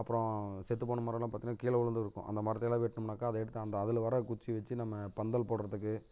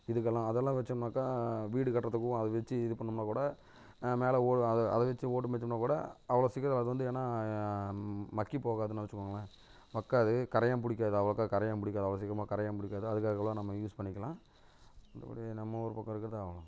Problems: background sounds at intervals